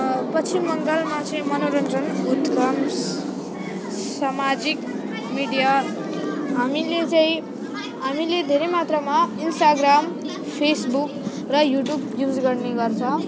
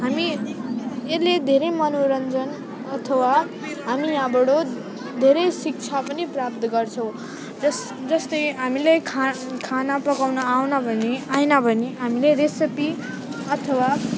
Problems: none marked